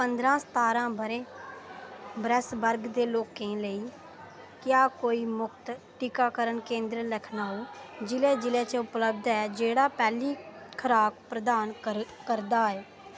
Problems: none marked